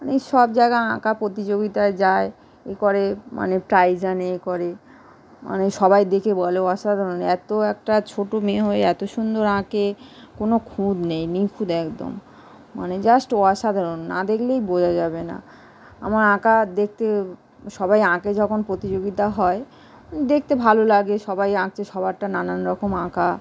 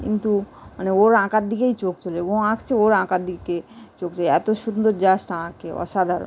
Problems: constant background noise